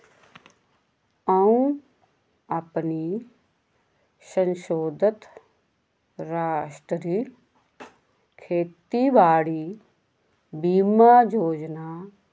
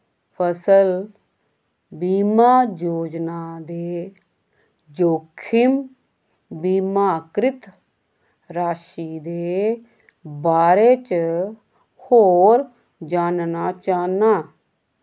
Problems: constant background noise